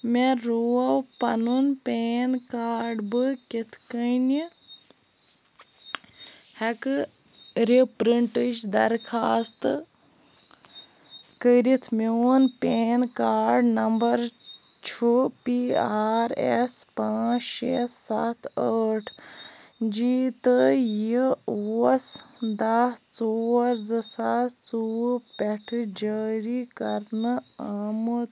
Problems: none marked